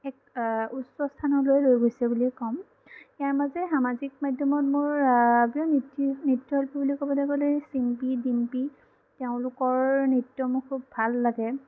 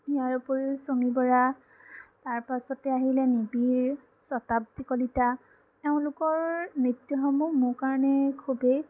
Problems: background sounds at intervals